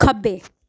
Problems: none marked